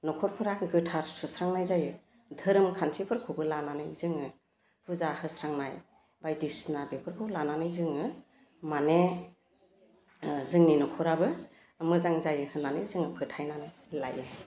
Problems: constant background noise